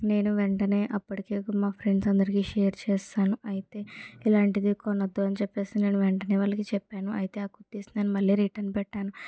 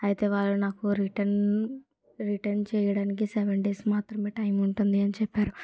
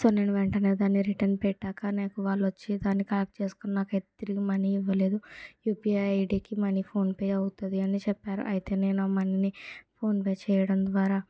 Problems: low volume